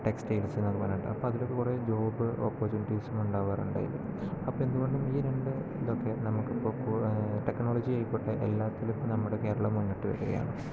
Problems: constant background noise, low volume